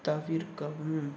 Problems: constant background noise